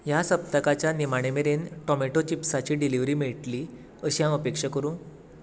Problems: constant background noise